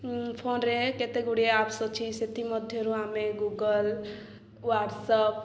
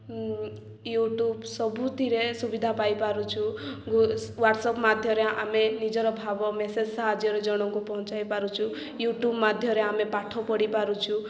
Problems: none marked